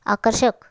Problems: none marked